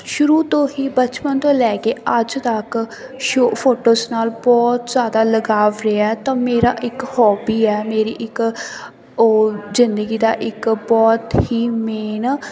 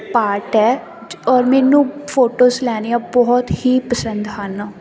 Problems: none marked